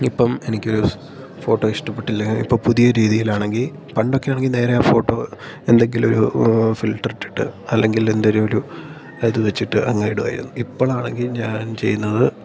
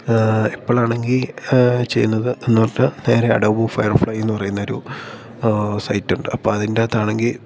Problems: constant background noise